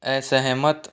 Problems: none marked